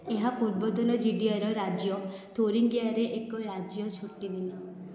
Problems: constant background noise